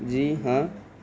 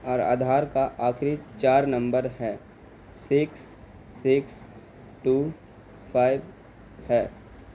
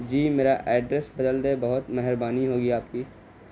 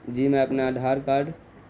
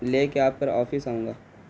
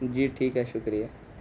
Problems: constant background noise